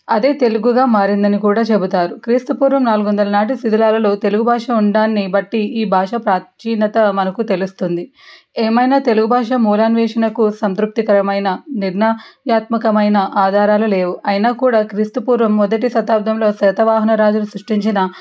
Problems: background sounds at intervals